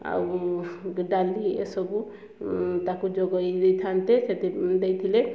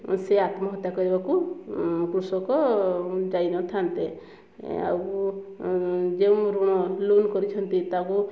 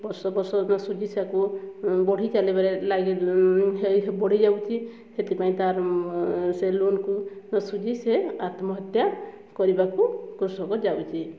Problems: low volume